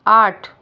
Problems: background sounds at intervals